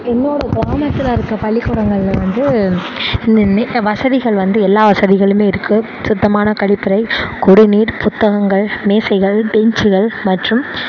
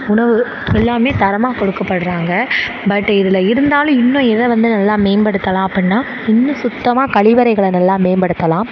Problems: constant background noise